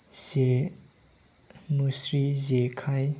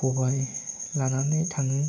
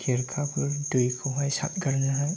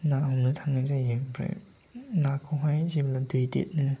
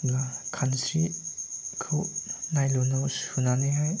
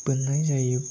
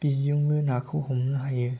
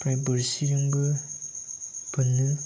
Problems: none marked